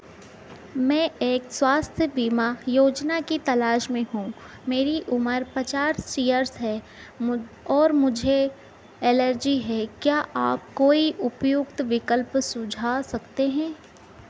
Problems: background sounds at intervals